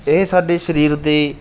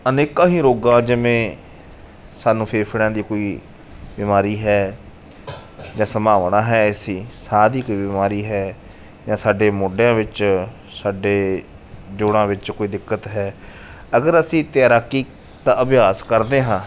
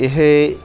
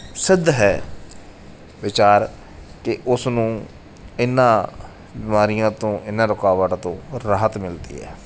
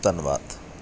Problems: background sounds at intervals